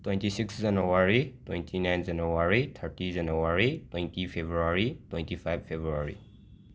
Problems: background sounds at intervals